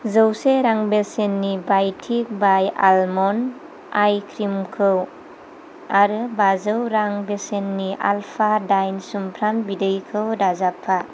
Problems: constant background noise